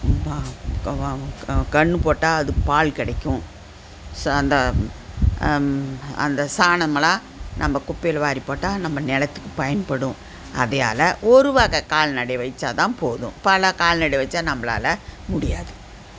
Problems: constant background noise